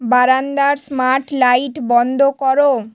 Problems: constant background noise